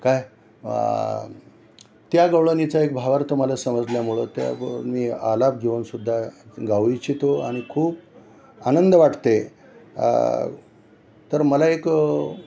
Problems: none marked